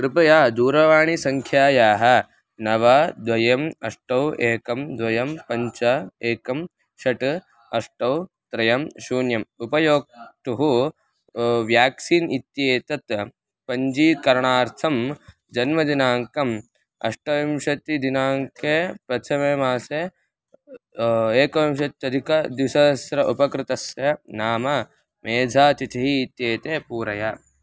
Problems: none marked